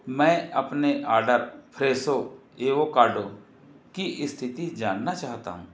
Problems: constant background noise